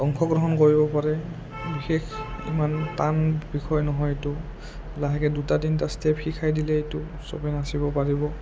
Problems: low volume